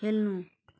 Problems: background sounds at intervals